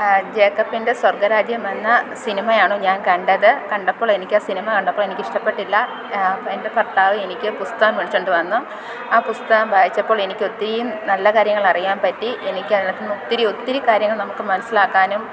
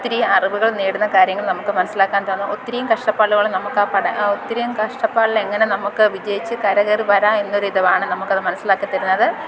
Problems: constant background noise